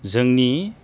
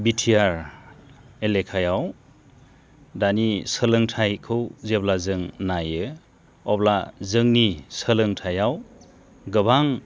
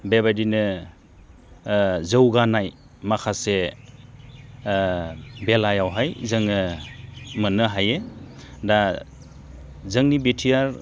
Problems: constant background noise